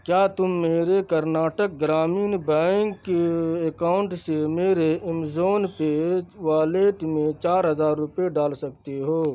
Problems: constant background noise